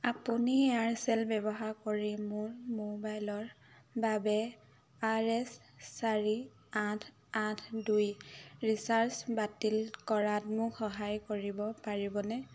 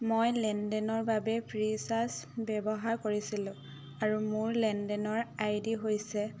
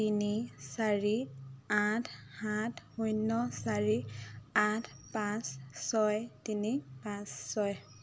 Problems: constant background noise